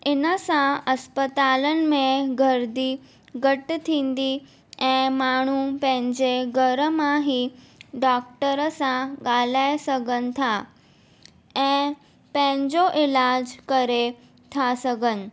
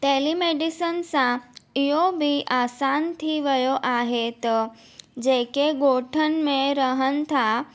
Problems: none marked